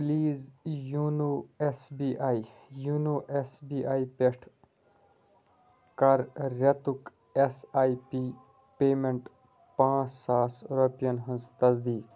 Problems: none marked